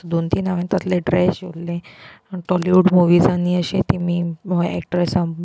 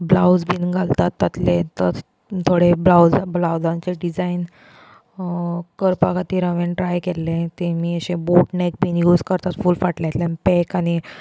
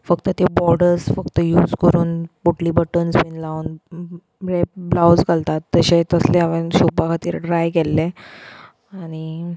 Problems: constant background noise, background conversations at intervals